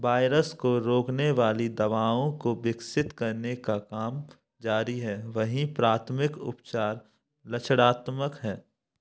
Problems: none marked